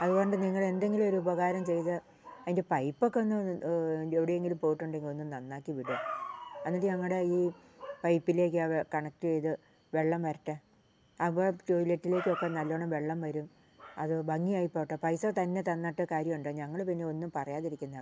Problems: none marked